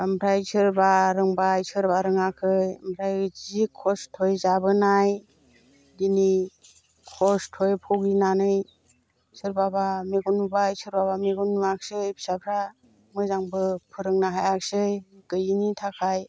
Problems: constant background noise